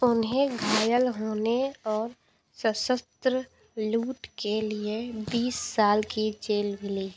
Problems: constant background noise